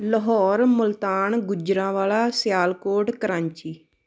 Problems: none marked